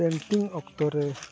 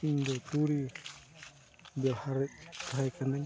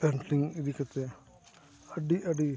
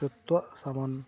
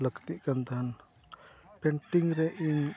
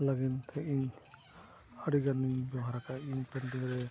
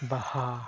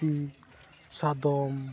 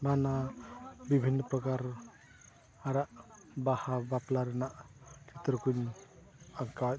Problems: constant background noise, continuous background conversations, low volume